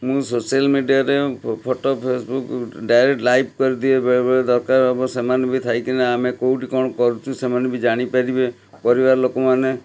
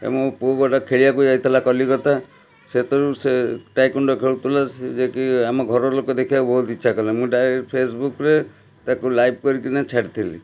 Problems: background conversations at intervals